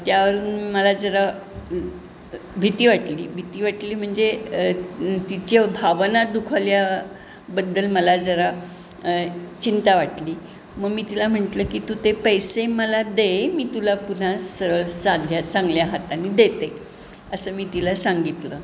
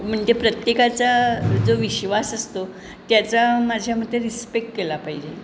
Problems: none marked